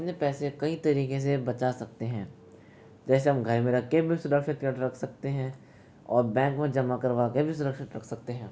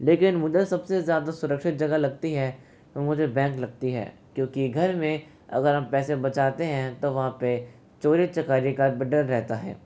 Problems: constant background noise